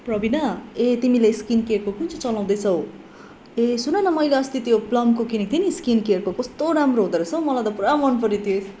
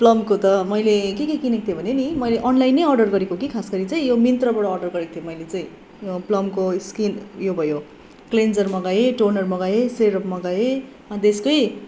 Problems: background conversations at intervals